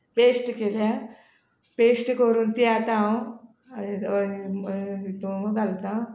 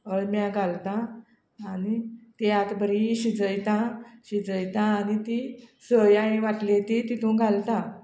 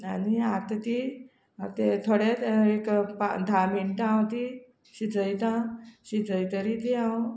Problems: none marked